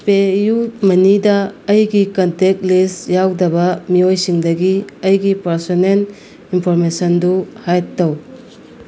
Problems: constant background noise